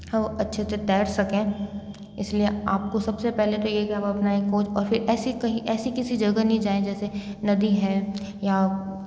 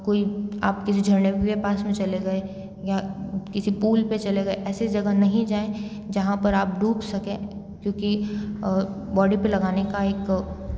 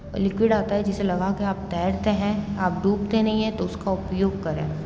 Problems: background sounds at intervals